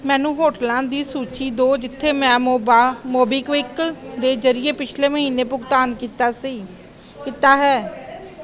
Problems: constant background noise